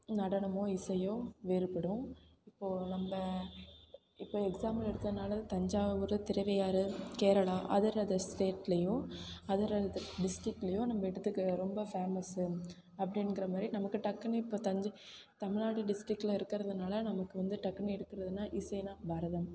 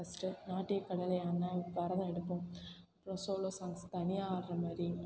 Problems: constant background noise